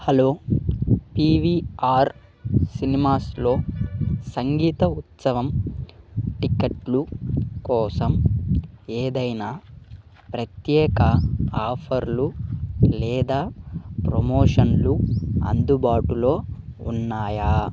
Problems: background sounds at intervals